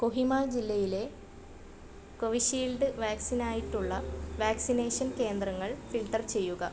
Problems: background sounds at intervals